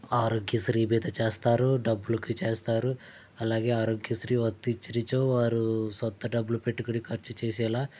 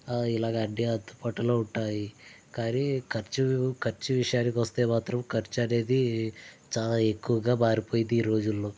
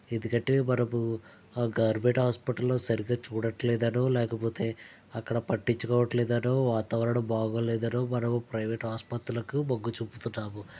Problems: none marked